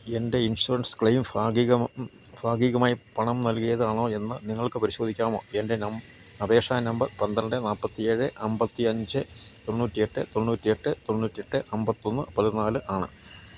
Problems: low volume